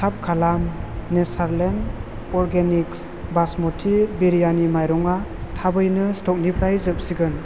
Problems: none marked